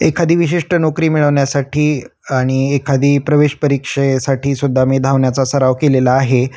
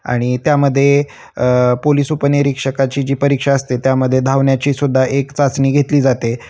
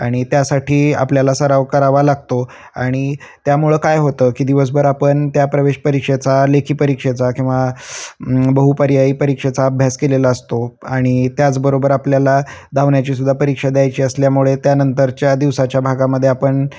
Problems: constant background noise, continuous background conversations